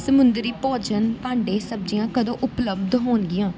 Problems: constant background noise